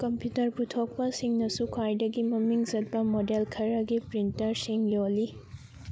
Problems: background sounds at intervals, background conversations at intervals